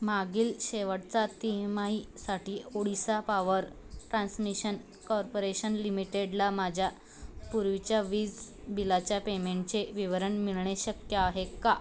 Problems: none marked